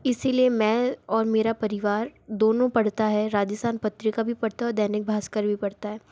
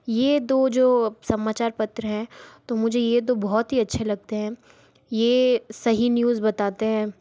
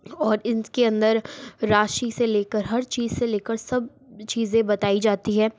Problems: background sounds at intervals